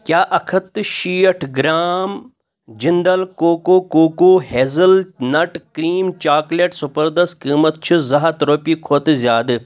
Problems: none marked